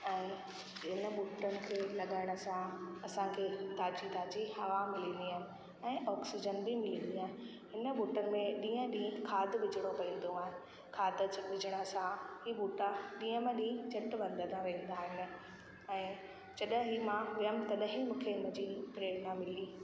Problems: constant background noise, echo